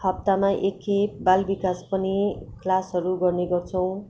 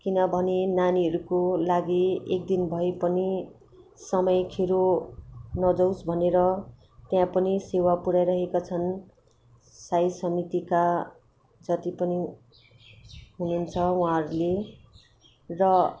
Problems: constant background noise